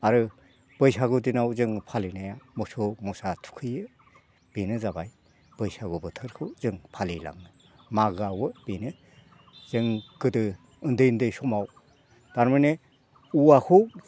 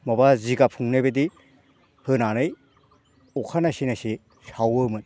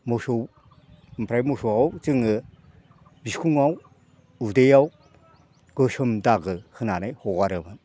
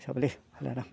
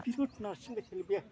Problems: background conversations at intervals